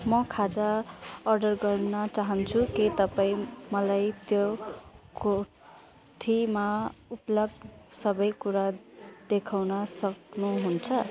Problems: constant background noise